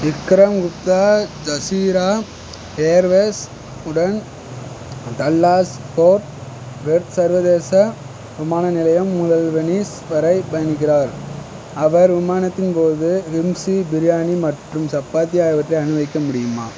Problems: constant background noise